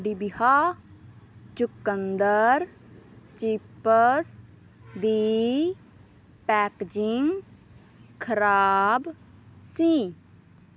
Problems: none marked